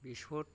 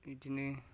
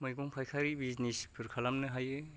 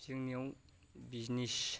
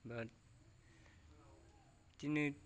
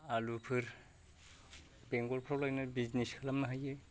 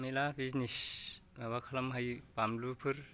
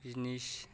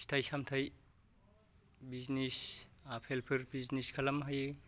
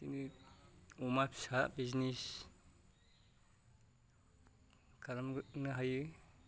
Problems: low volume